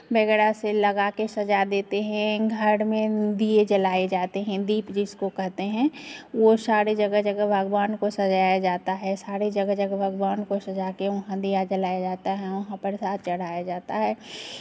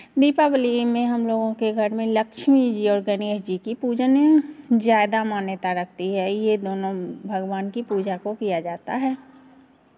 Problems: constant background noise